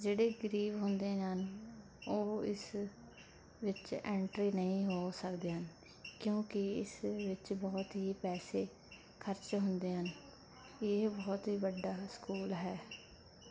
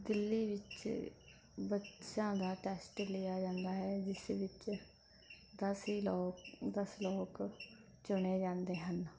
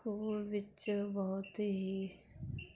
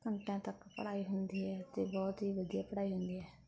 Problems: constant background noise